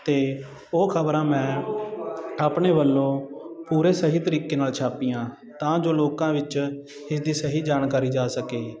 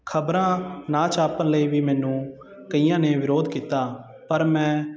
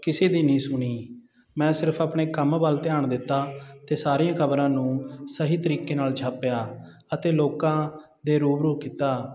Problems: continuous background conversations